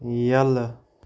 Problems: none marked